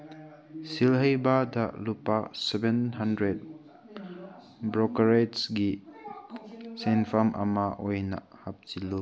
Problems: background sounds at intervals, background conversations at intervals